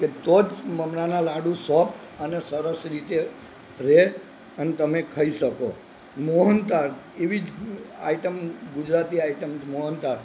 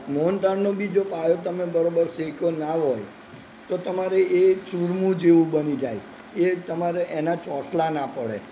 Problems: none marked